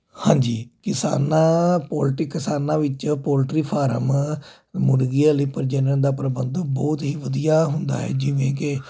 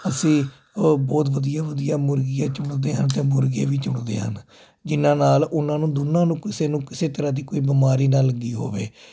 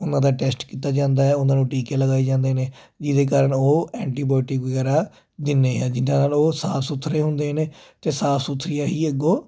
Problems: constant background noise